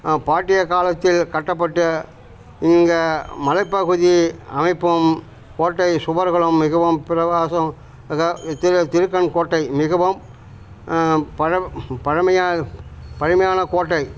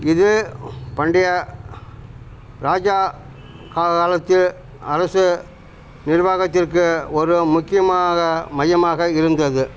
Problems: constant background noise